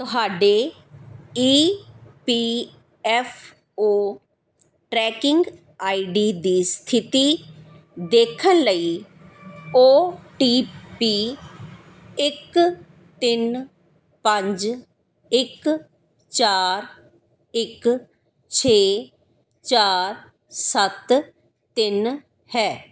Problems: background sounds at intervals